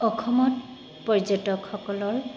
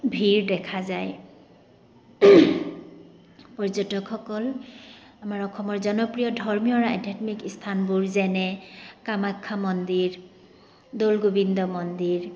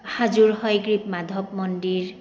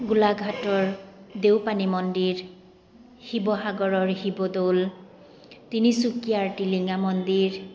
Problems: none marked